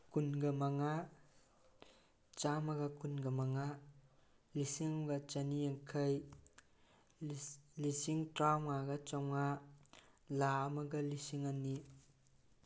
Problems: none marked